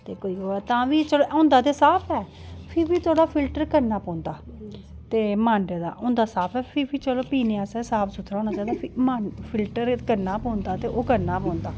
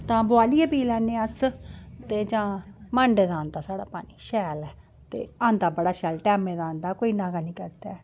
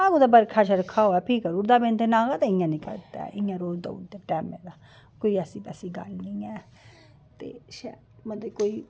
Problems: none marked